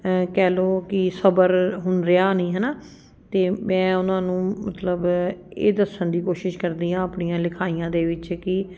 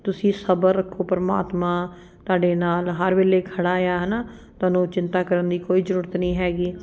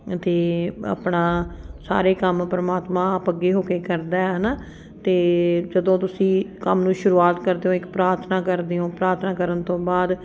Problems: none marked